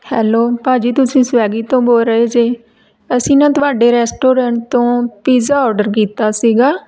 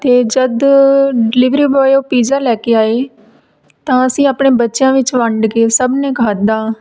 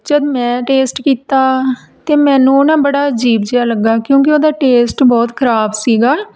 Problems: background sounds at intervals